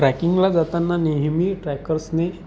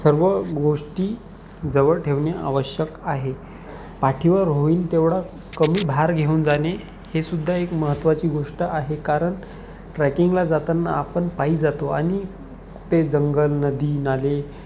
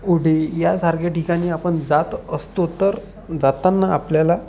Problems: constant background noise